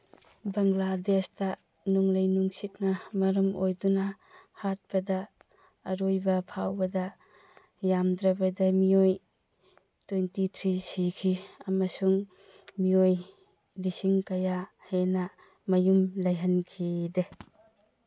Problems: none marked